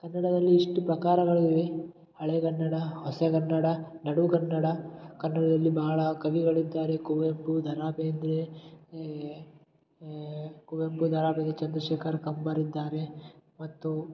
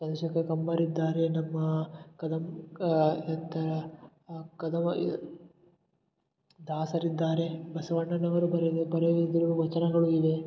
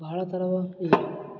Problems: none marked